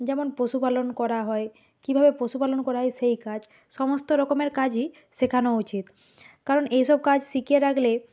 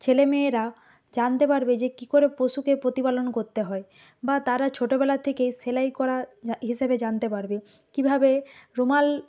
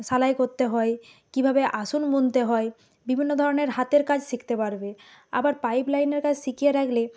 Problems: background sounds at intervals